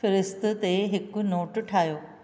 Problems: none marked